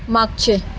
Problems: none marked